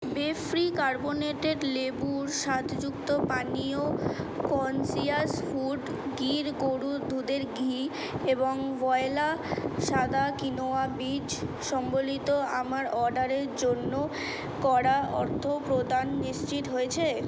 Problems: none marked